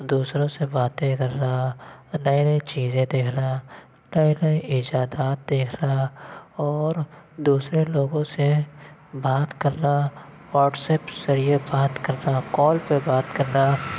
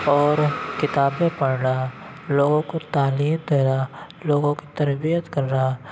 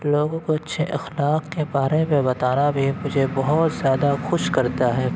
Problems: constant background noise